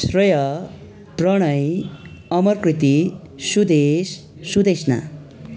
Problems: none marked